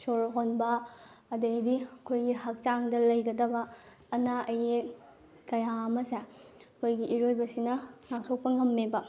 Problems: none marked